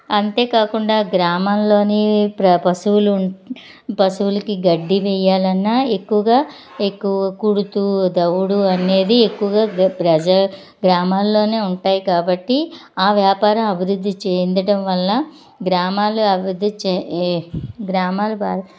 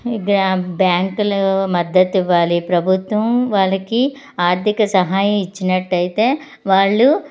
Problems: none marked